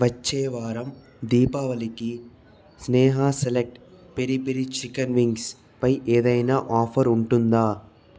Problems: none marked